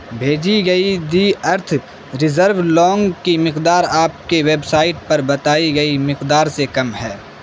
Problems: constant background noise